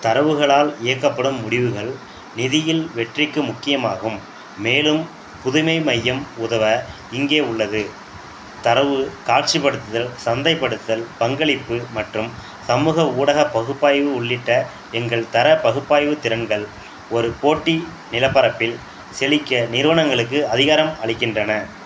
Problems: none marked